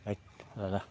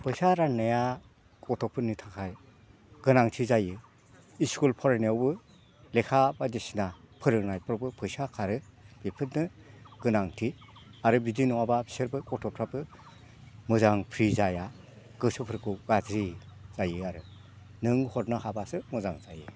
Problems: none marked